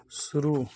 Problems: background sounds at intervals